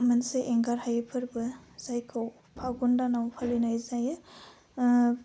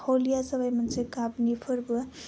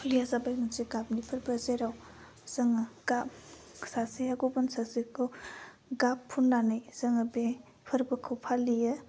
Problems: constant background noise